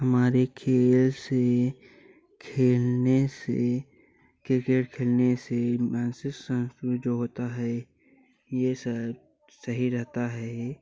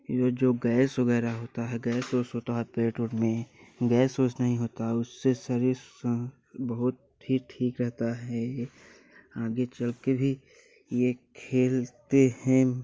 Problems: constant background noise